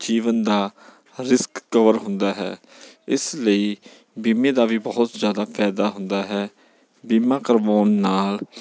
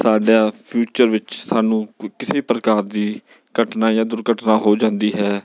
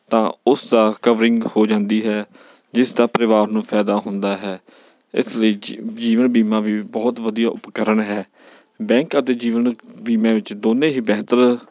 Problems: background sounds at intervals